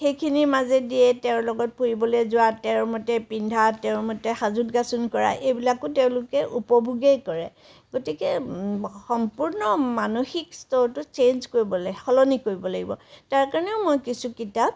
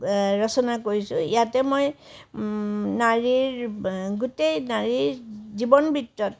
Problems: none marked